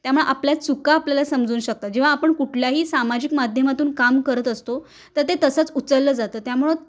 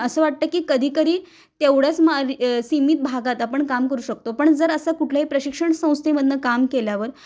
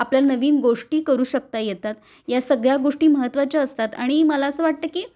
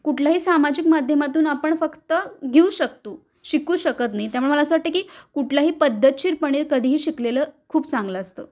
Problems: none marked